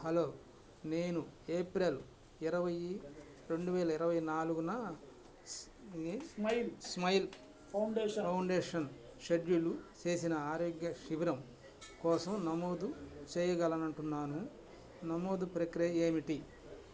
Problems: constant background noise